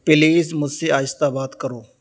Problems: constant background noise